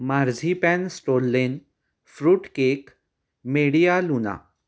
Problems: none marked